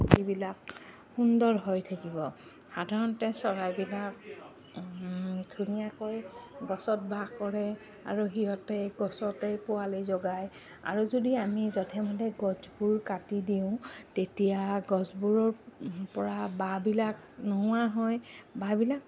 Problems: none marked